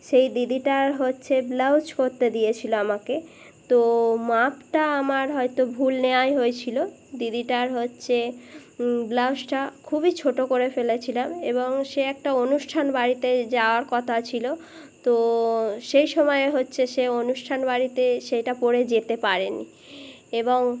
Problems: background conversations at intervals